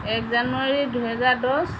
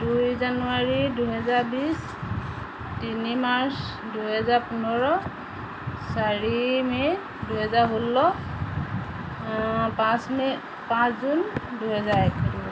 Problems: constant background noise